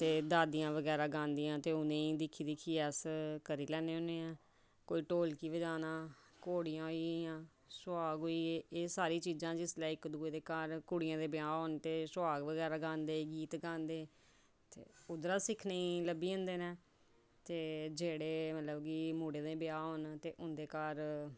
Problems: none marked